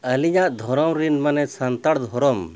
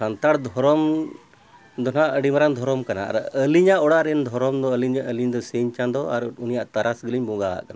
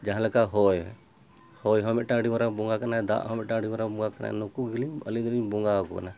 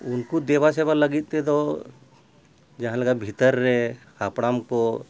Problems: background sounds at intervals